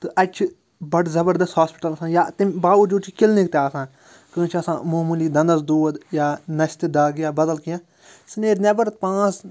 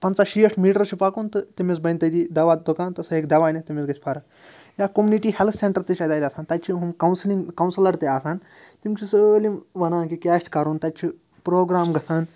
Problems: constant background noise